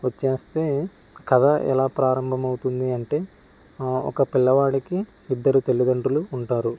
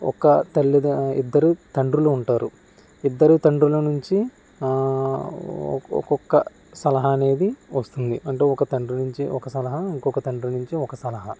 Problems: constant background noise